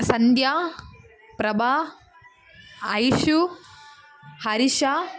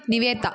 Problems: constant background noise